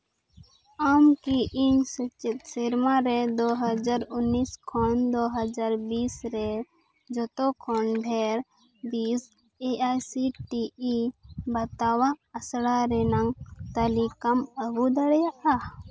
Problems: background sounds at intervals